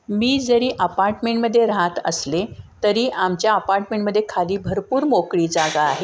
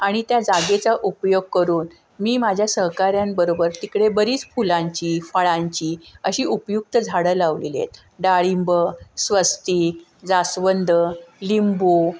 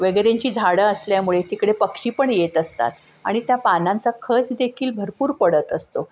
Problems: none marked